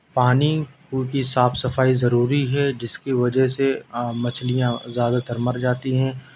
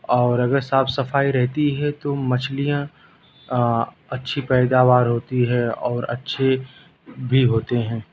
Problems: none marked